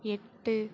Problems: none marked